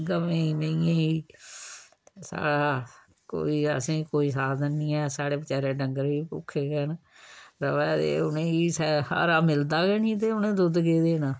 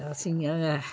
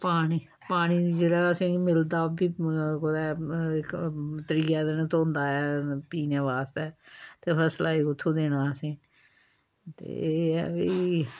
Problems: low volume